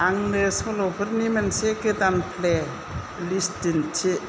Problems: low volume